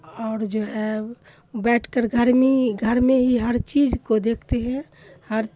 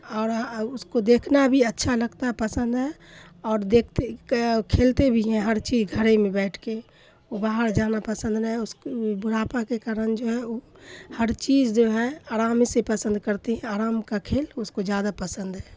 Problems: none marked